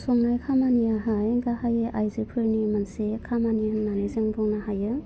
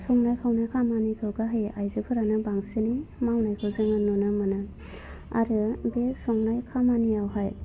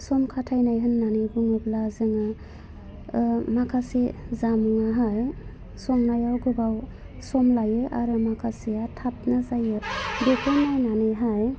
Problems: low volume